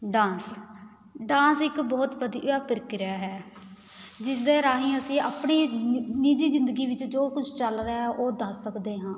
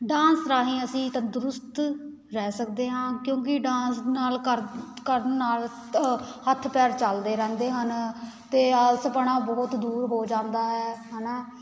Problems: none marked